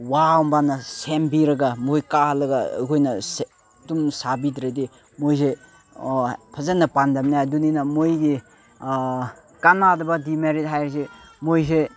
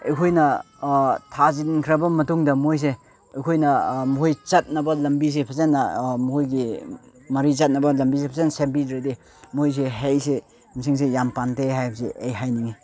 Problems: background sounds at intervals, background conversations at intervals